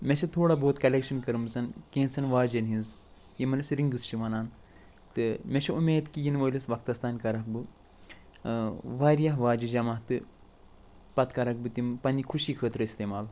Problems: none marked